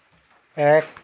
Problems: none marked